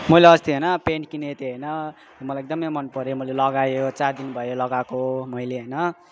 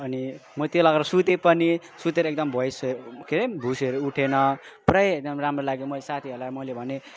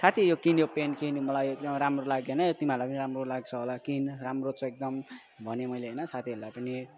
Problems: continuous background conversations